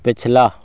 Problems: constant background noise